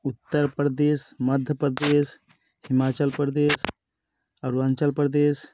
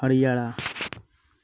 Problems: none marked